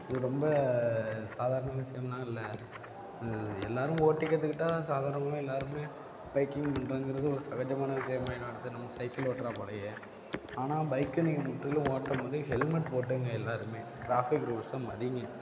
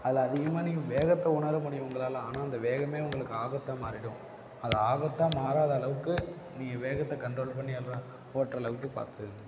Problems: background sounds at intervals, low volume